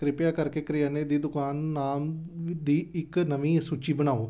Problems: none marked